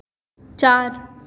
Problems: constant background noise, echo